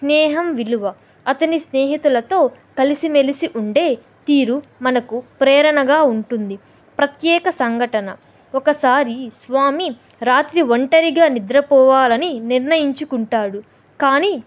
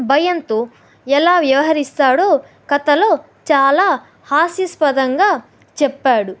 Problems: none marked